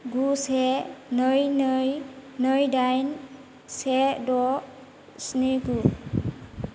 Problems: constant background noise